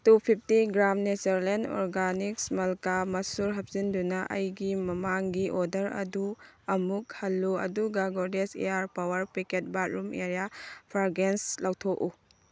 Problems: background sounds at intervals